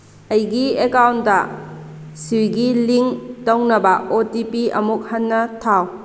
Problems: constant background noise